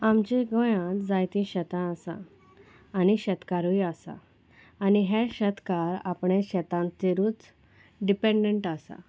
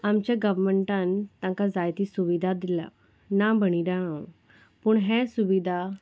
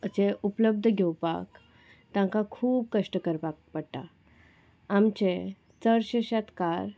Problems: constant background noise